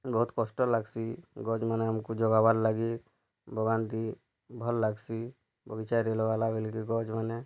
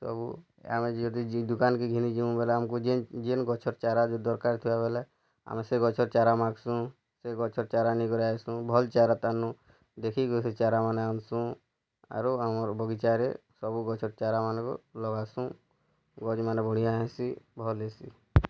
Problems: low volume